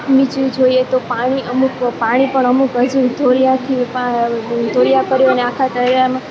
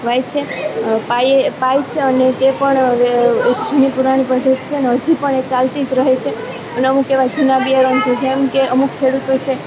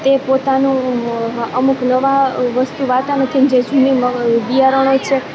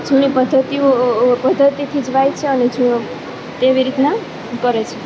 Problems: background conversations at intervals